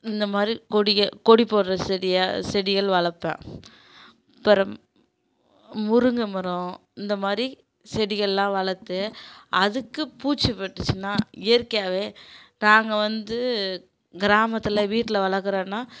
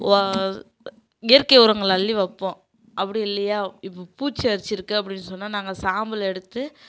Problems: constant background noise